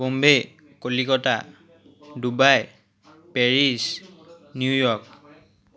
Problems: continuous background conversations